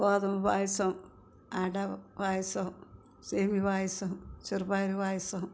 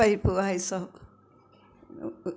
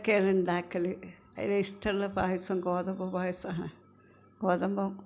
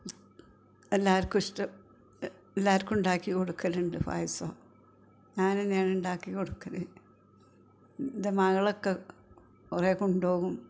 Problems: background conversations at intervals, low volume